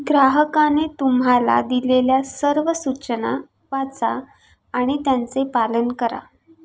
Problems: constant background noise